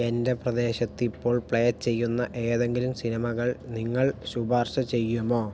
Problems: low volume